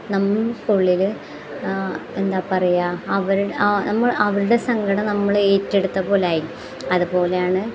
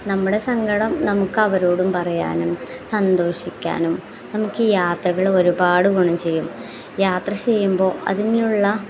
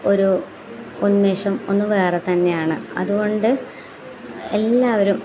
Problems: background sounds at intervals